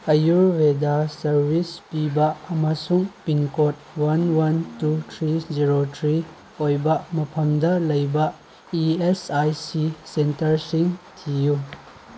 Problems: constant background noise